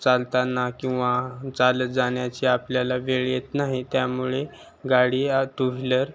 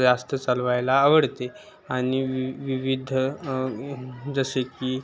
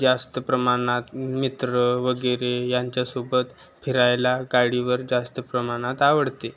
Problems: constant background noise, continuous background conversations